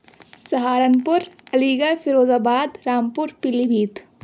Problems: none marked